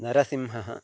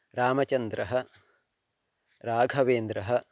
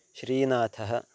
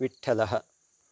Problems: constant background noise